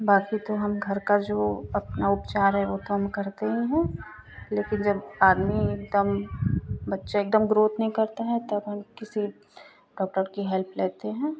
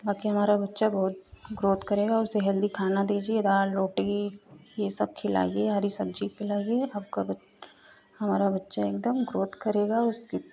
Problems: constant background noise